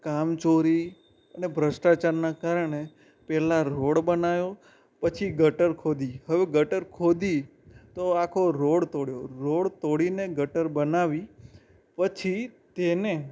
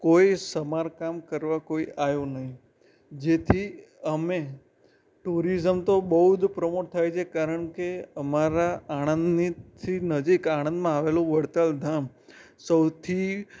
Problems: background sounds at intervals